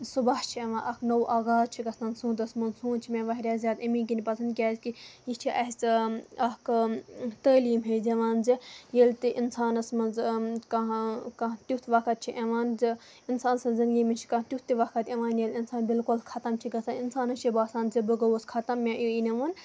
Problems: none marked